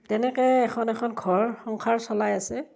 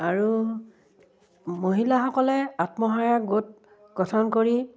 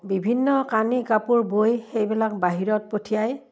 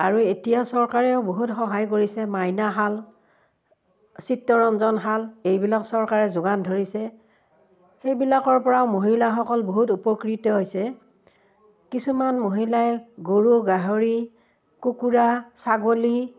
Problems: background sounds at intervals